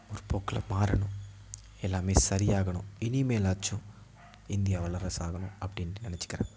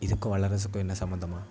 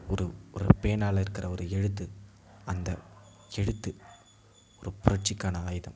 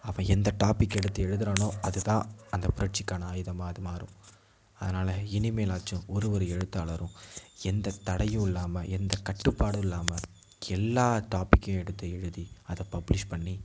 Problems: background sounds at intervals